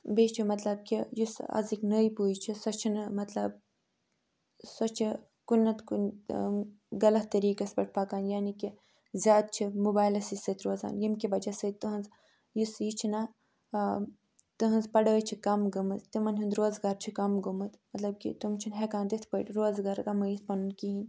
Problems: none marked